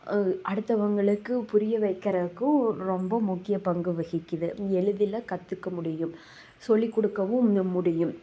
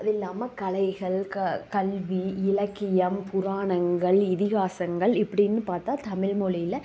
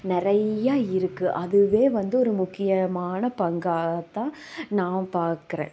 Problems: background sounds at intervals